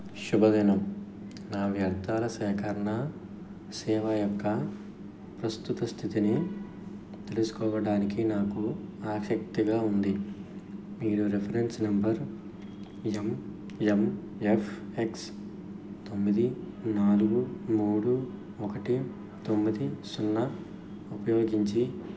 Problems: background sounds at intervals, background conversations at intervals